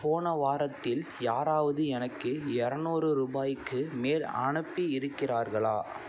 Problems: none marked